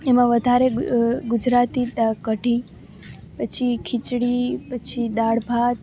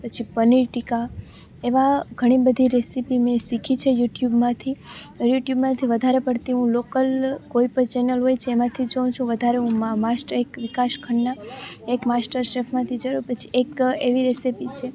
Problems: none marked